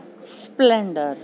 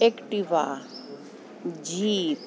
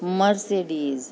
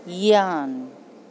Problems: constant background noise